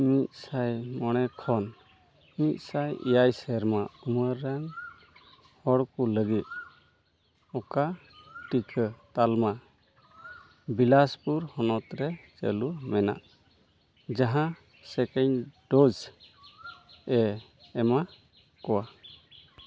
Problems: none marked